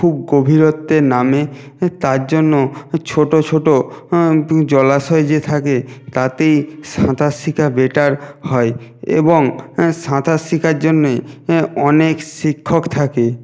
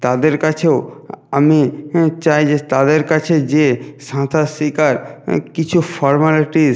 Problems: background sounds at intervals